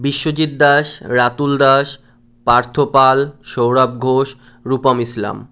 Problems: none marked